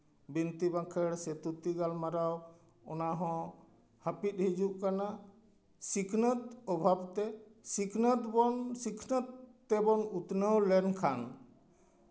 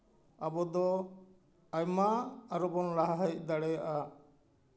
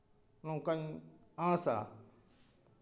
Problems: none marked